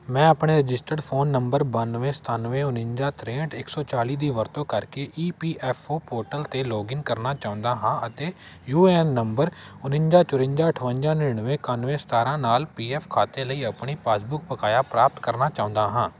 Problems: constant background noise